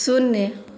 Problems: none marked